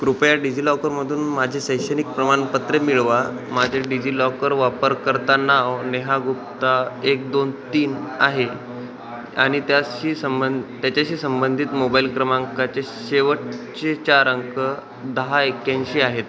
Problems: constant background noise, continuous background conversations